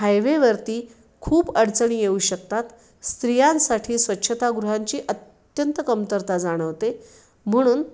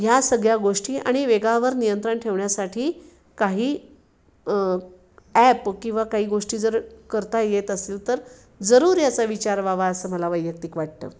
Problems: none marked